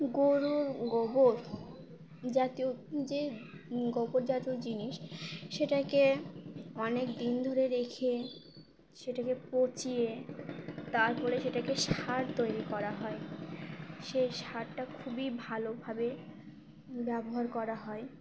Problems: none marked